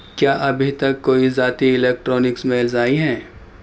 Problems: constant background noise